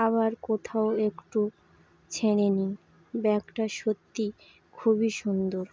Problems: none marked